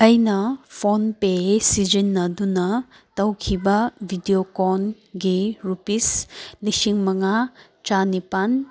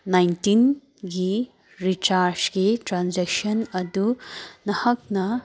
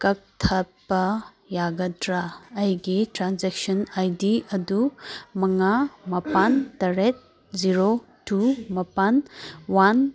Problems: background sounds at intervals